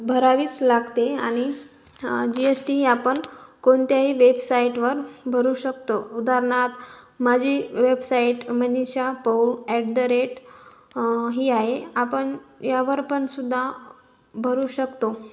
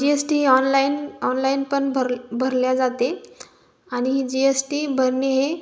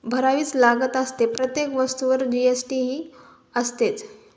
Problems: background sounds at intervals